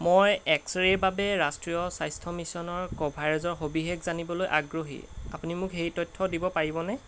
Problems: constant background noise